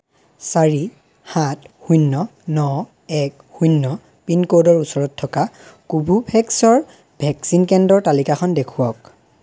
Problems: none marked